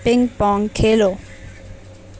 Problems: none marked